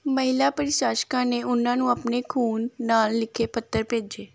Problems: background sounds at intervals